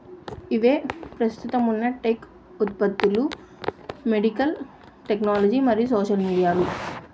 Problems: constant background noise